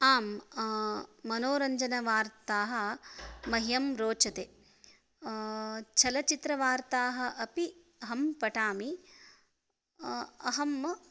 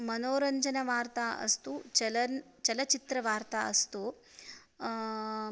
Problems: none marked